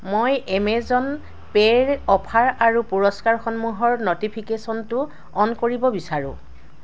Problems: none marked